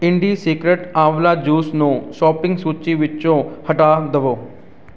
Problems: none marked